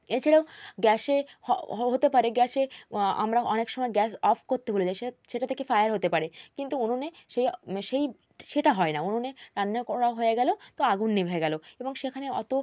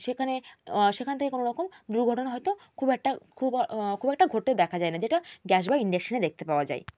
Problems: constant background noise